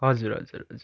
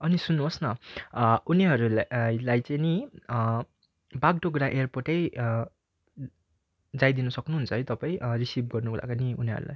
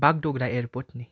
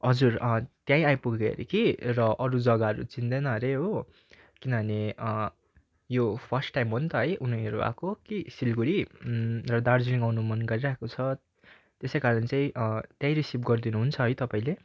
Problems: background sounds at intervals